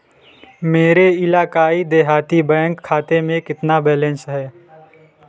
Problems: constant background noise, continuous background conversations